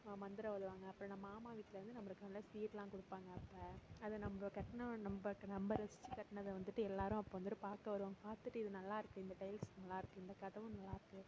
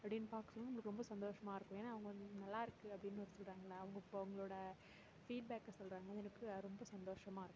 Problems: constant background noise